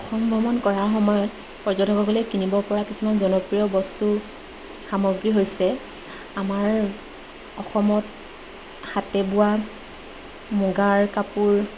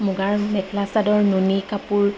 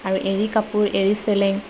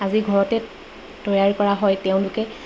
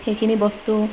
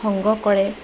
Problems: constant background noise